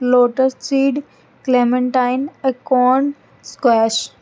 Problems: constant background noise